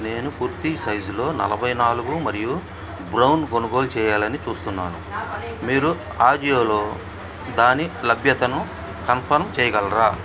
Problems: background sounds at intervals, background conversations at intervals